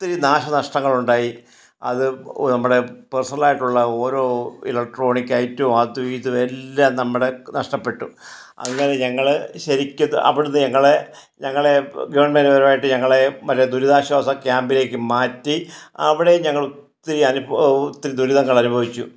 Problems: none marked